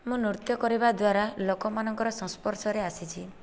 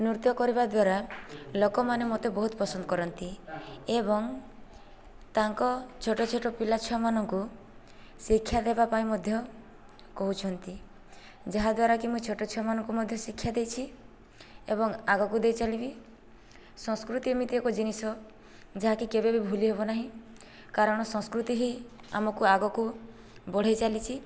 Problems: background conversations at intervals